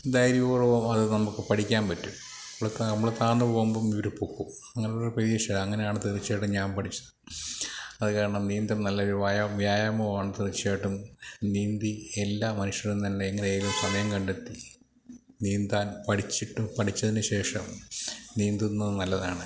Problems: none marked